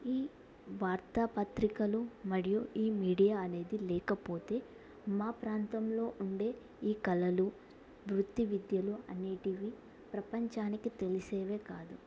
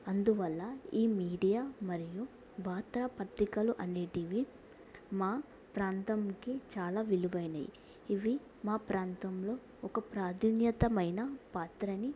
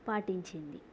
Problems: low volume